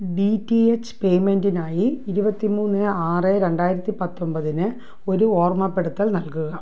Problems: low volume